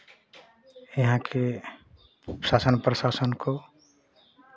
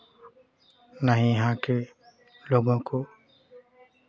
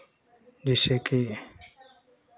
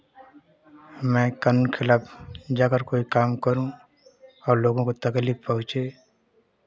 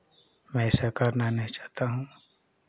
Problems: constant background noise, continuous background conversations